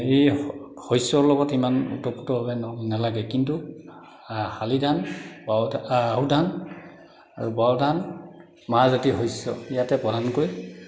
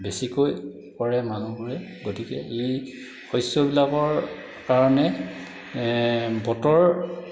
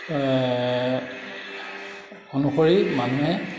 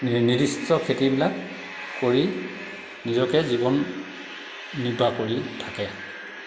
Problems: constant background noise, echo